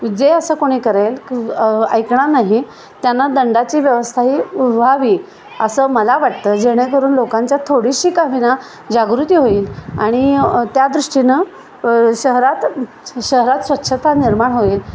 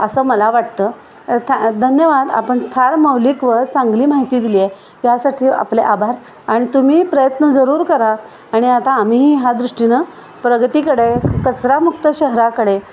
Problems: constant background noise